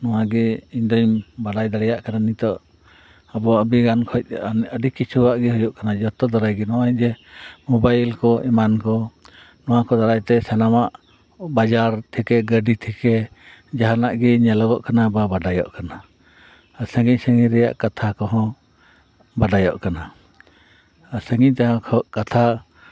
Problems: background conversations at intervals